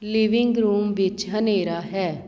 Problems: constant background noise